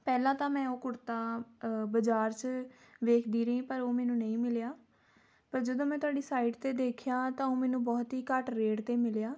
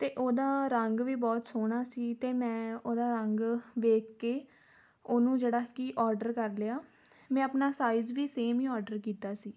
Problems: none marked